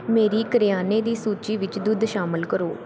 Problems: background sounds at intervals